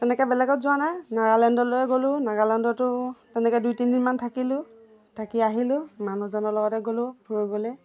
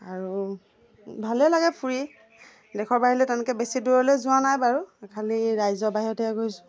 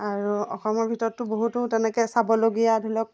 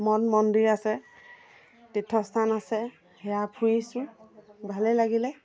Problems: none marked